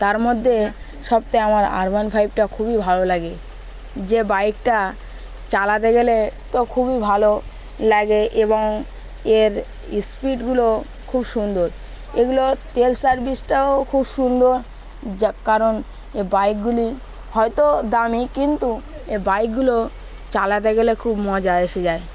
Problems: constant background noise